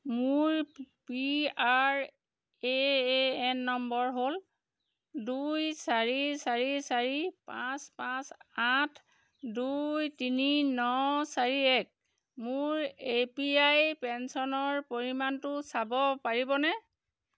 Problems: constant background noise